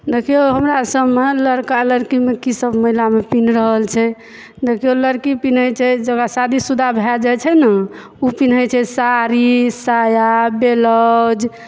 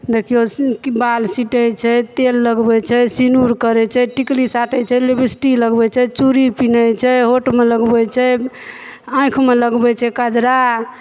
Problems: background sounds at intervals, background conversations at intervals